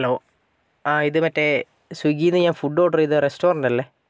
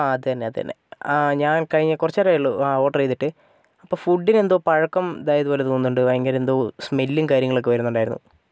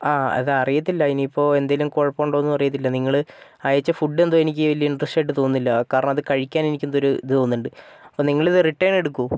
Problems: none marked